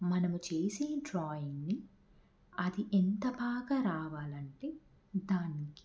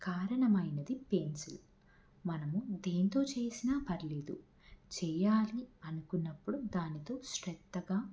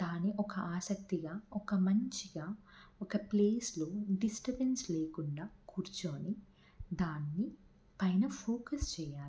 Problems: none marked